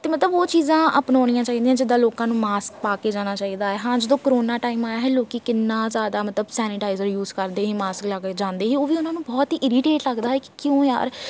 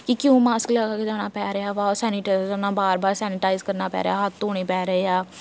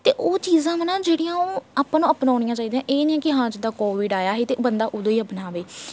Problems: none marked